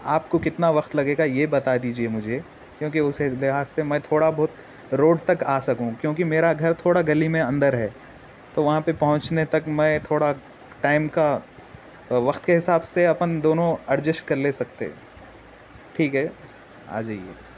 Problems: constant background noise